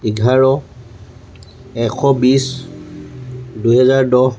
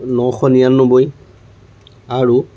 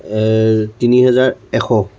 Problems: none marked